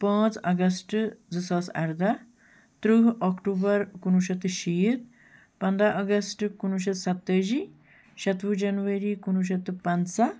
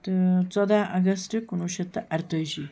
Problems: none marked